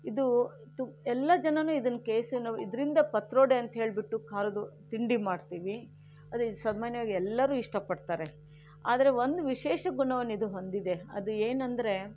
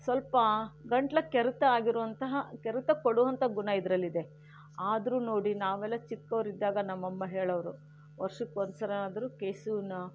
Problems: none marked